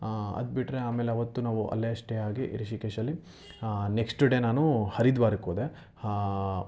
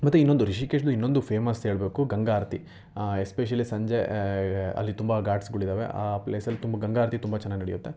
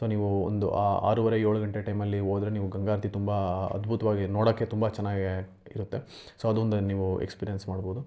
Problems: none marked